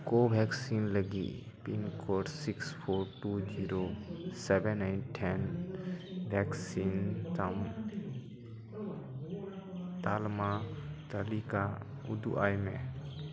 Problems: background conversations at intervals, echo